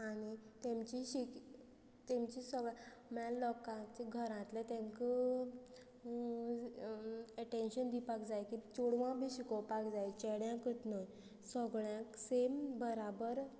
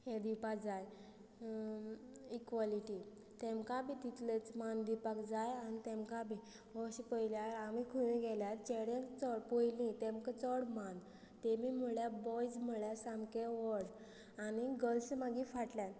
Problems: low volume